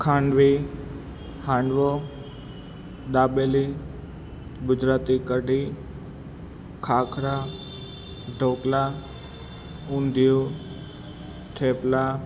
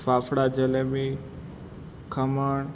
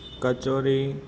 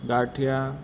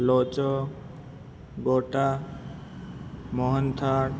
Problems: constant background noise